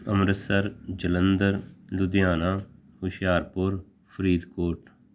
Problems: none marked